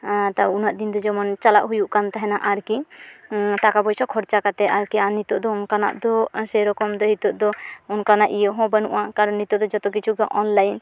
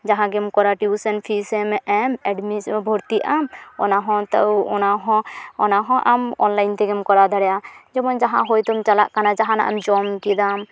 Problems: none marked